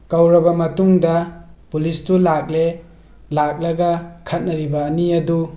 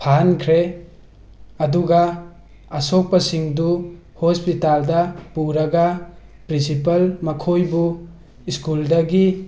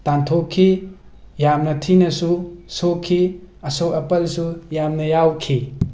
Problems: background sounds at intervals